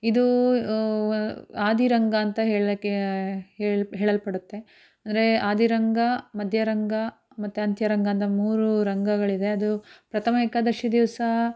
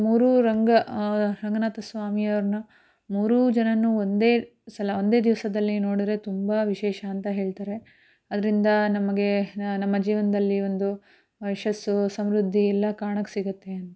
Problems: none marked